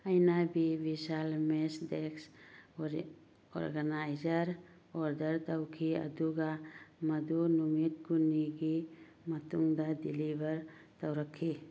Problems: none marked